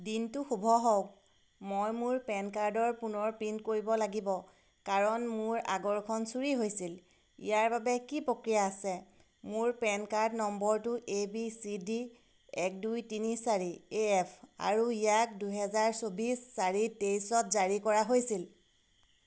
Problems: constant background noise